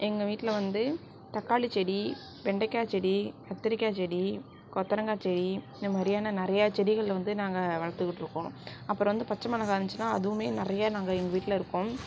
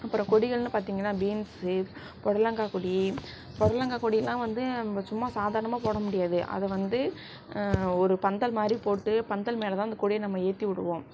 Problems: none marked